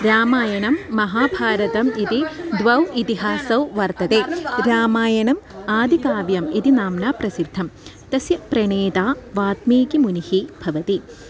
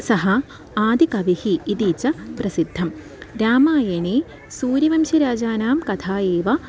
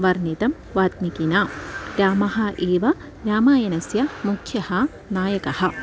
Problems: none marked